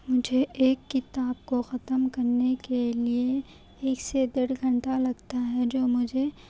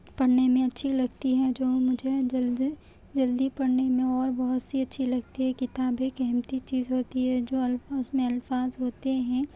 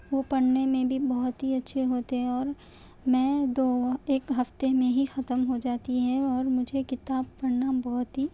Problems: background sounds at intervals